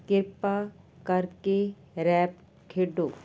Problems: constant background noise